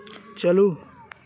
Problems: none marked